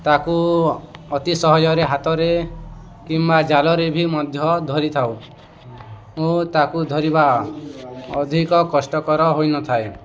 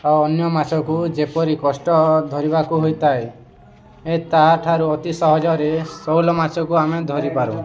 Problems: constant background noise, continuous background conversations